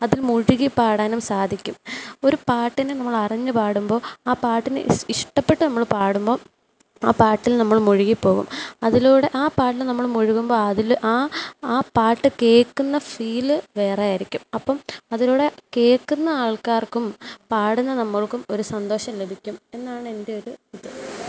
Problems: background sounds at intervals